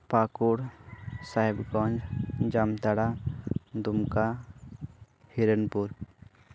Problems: constant background noise